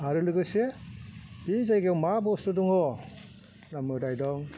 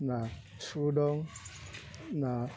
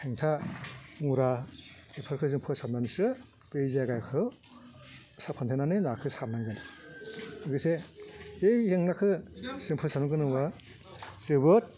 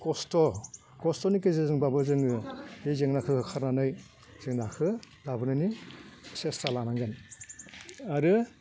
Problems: constant background noise